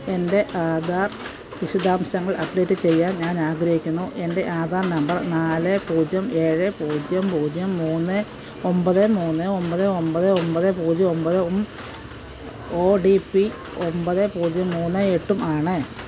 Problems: constant background noise